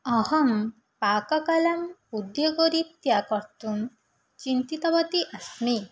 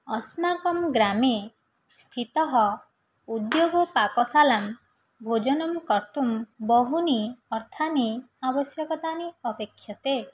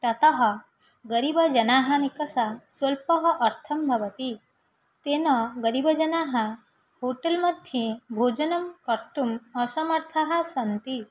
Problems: none marked